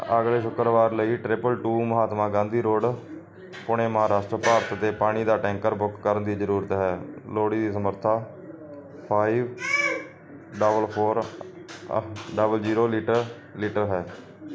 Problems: background sounds at intervals, background conversations at intervals